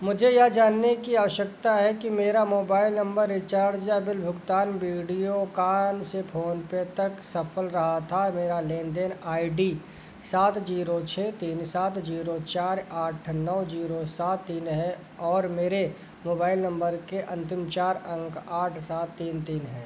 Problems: constant background noise